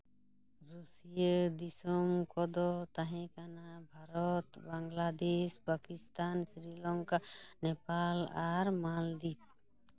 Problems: none marked